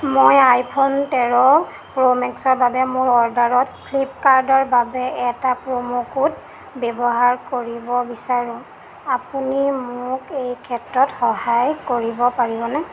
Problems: constant background noise